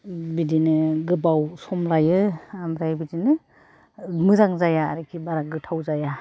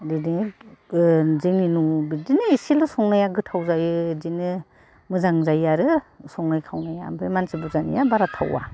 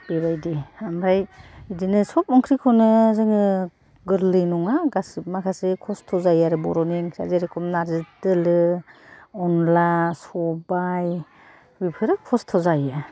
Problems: none marked